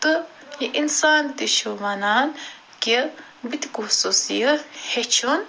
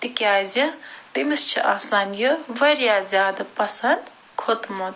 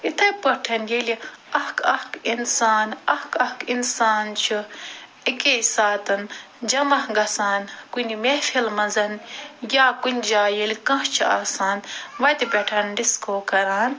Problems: constant background noise